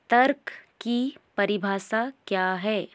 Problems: echo